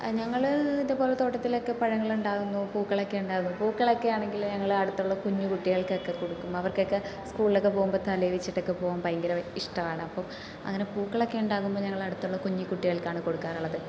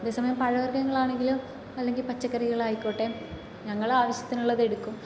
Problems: constant background noise, low volume